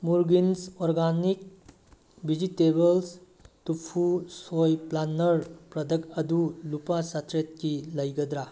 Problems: background sounds at intervals